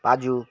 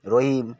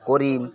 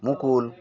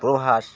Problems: constant background noise